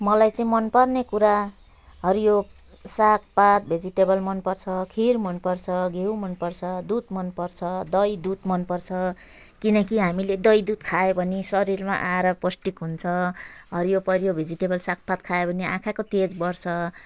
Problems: background sounds at intervals